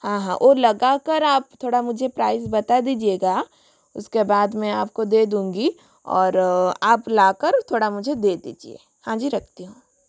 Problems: constant background noise